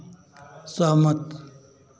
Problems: constant background noise